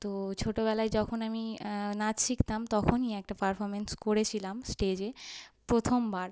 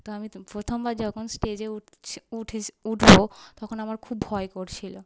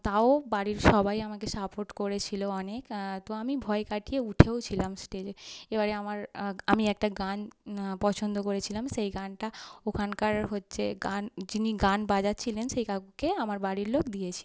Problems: background sounds at intervals